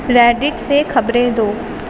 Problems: constant background noise